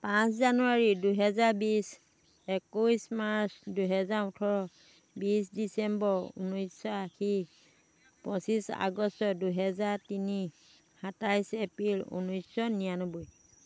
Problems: constant background noise